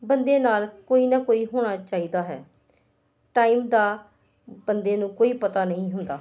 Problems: constant background noise